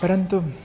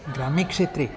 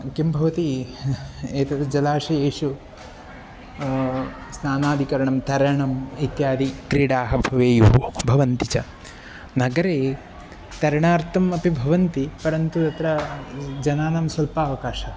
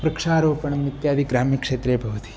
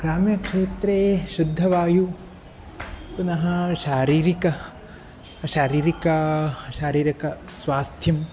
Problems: constant background noise